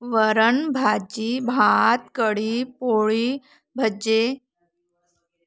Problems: background sounds at intervals